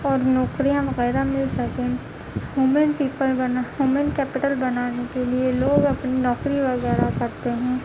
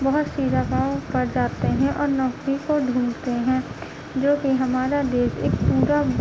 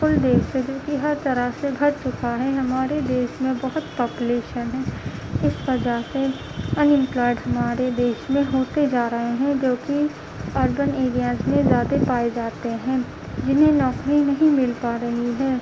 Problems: constant background noise, low volume